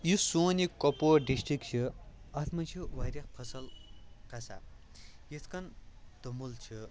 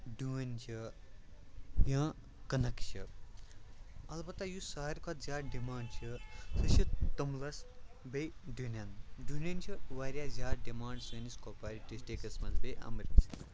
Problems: constant background noise